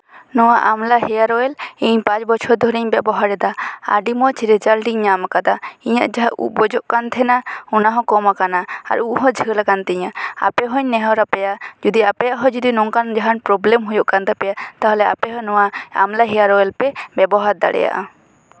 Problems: background sounds at intervals